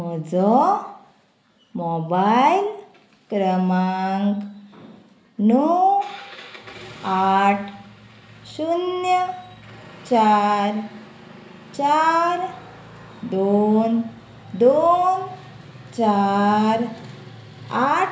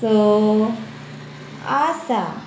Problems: constant background noise